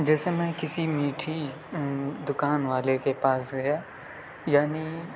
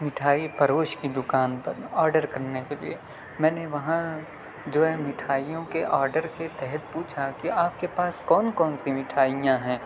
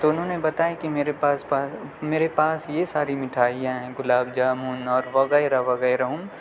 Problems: none marked